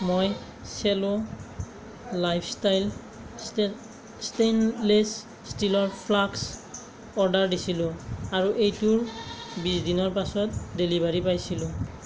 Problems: background sounds at intervals